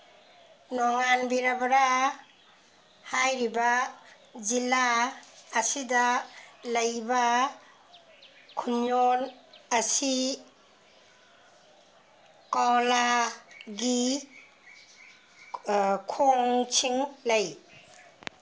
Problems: background sounds at intervals